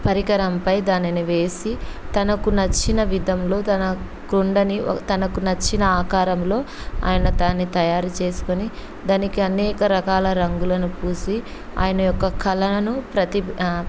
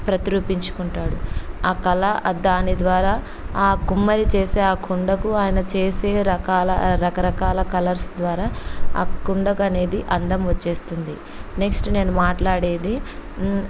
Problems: constant background noise